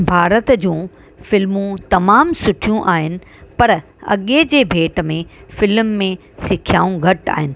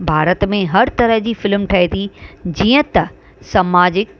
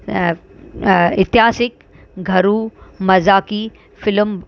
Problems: constant background noise